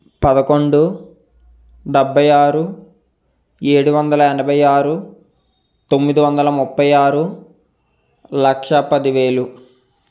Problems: constant background noise